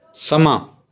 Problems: background conversations at intervals